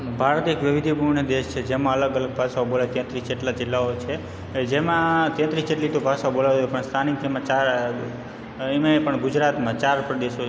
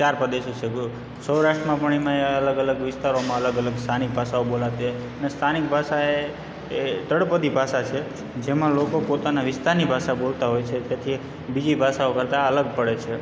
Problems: background sounds at intervals, background conversations at intervals